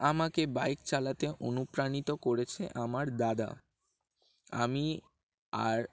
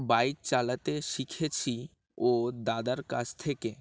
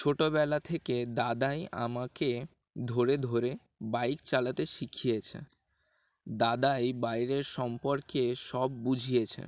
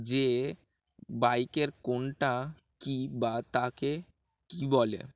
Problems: background sounds at intervals